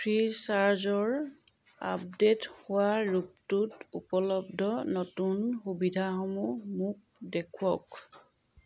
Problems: none marked